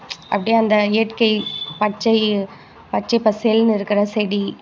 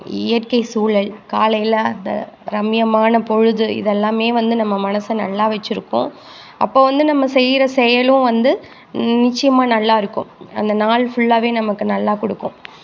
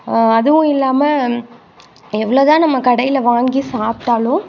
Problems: constant background noise